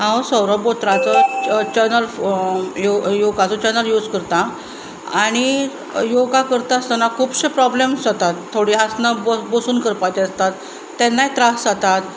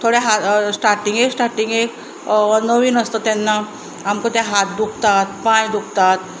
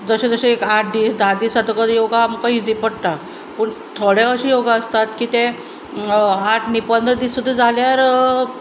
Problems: none marked